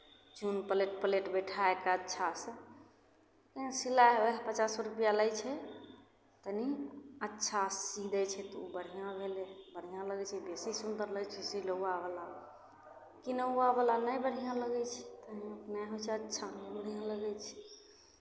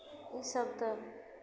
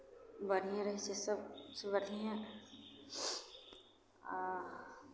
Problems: none marked